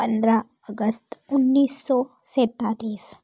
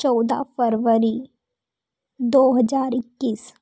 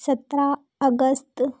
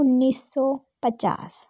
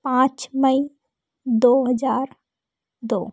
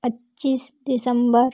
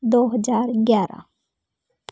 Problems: none marked